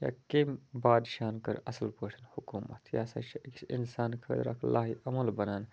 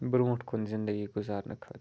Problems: none marked